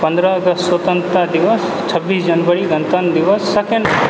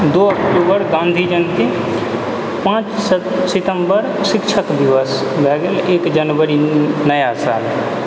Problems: background sounds at intervals